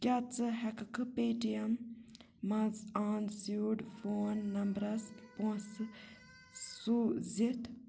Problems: background sounds at intervals, background conversations at intervals, low volume